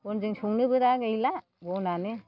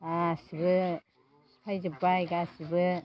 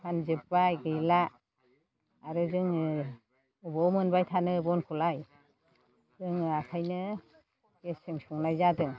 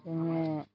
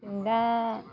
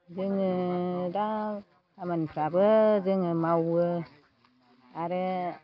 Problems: low volume